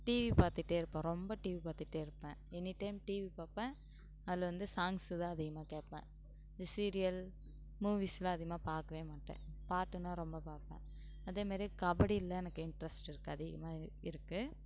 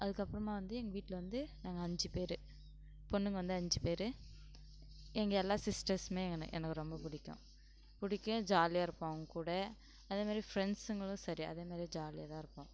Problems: background sounds at intervals